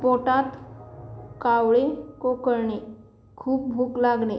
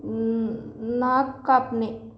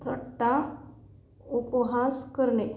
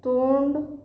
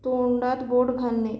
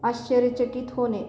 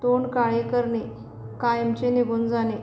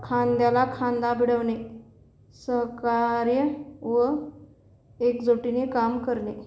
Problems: none marked